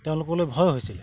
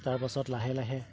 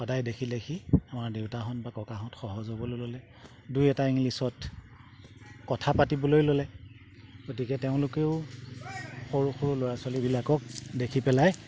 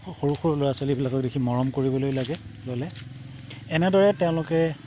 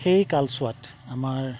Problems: background sounds at intervals